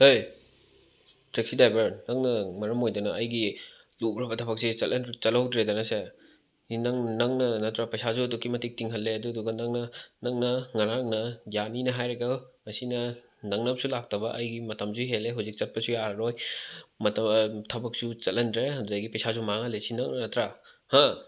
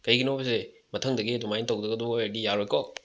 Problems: background sounds at intervals